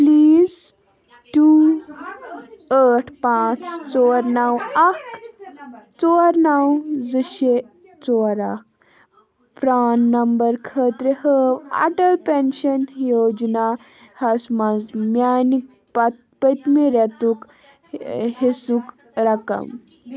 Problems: constant background noise, continuous background conversations